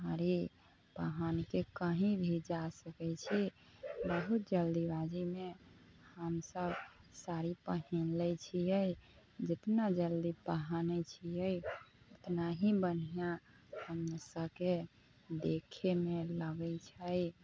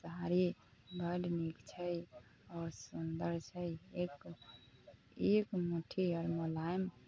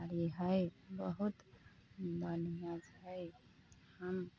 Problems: none marked